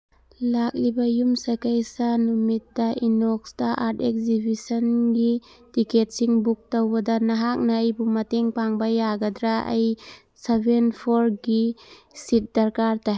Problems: none marked